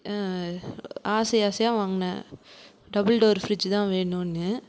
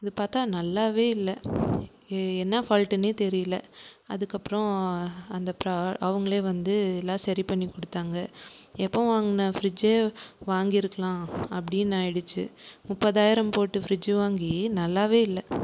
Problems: none marked